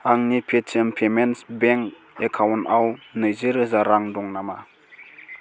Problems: constant background noise